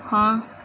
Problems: background sounds at intervals